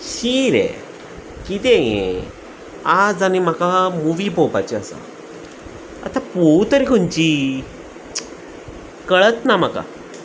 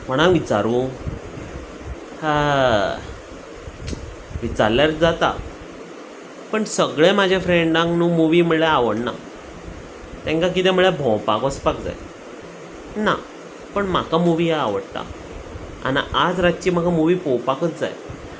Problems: none marked